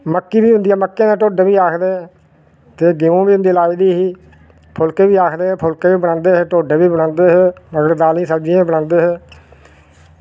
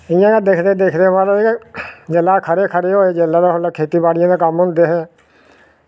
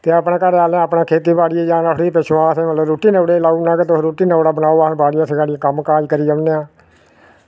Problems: none marked